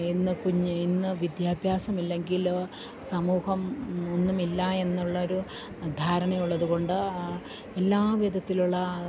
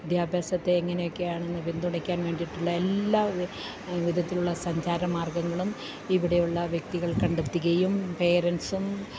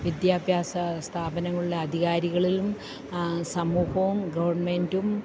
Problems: none marked